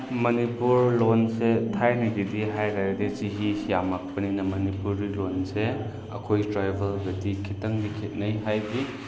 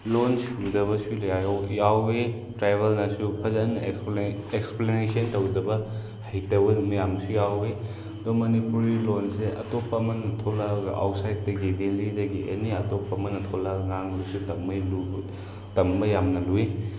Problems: background sounds at intervals